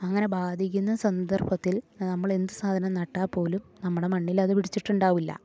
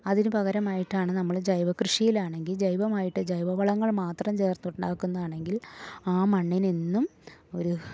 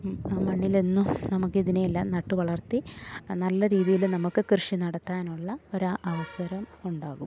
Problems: none marked